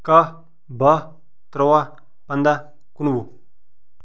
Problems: none marked